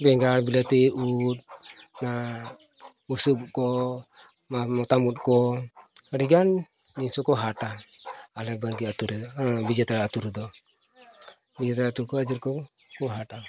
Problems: constant background noise